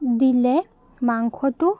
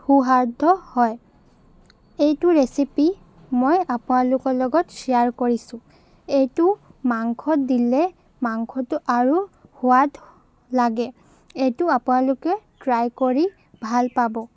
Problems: constant background noise